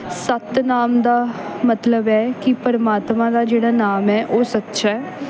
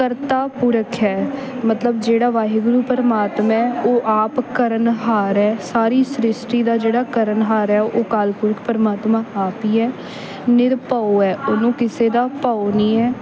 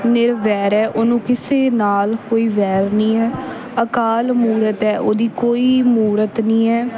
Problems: background sounds at intervals, background conversations at intervals